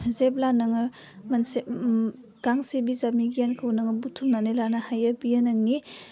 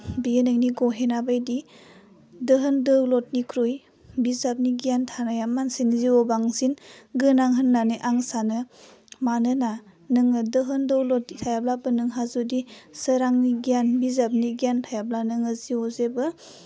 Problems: low volume